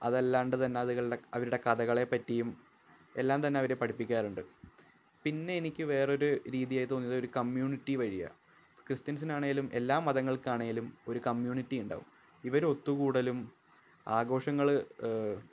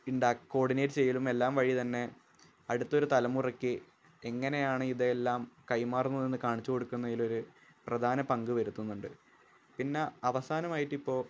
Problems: low volume